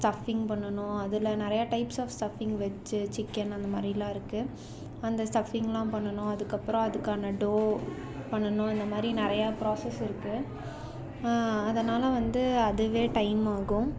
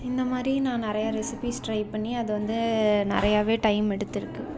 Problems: none marked